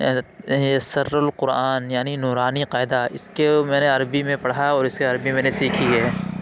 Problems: constant background noise